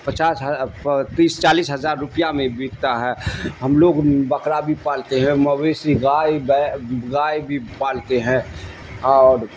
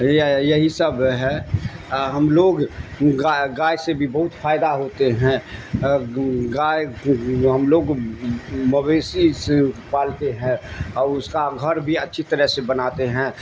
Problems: constant background noise